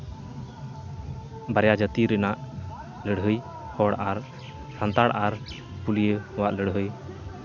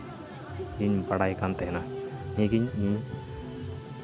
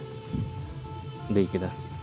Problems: constant background noise